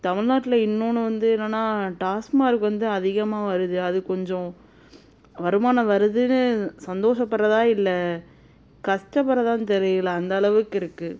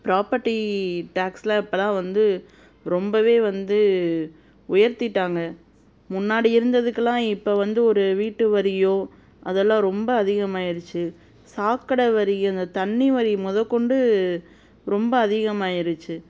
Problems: none marked